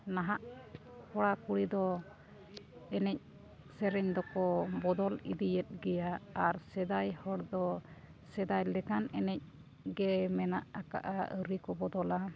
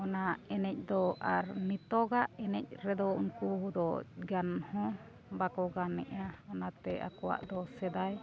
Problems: background sounds at intervals